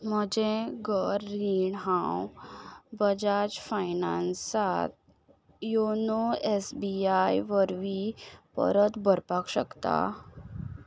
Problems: background sounds at intervals